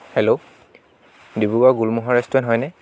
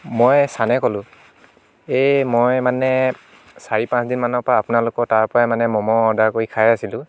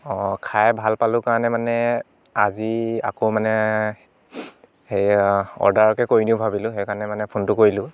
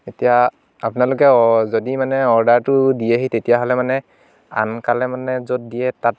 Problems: none marked